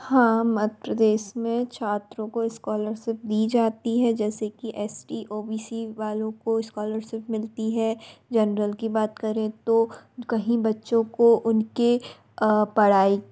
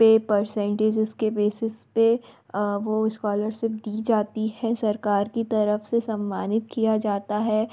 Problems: background sounds at intervals